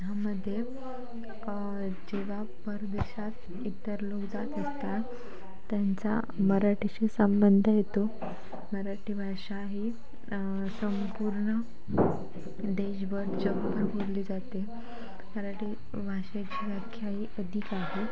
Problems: constant background noise, continuous background conversations